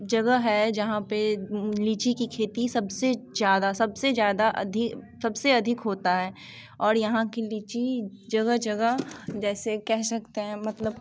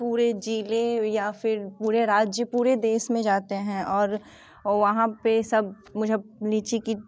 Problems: background sounds at intervals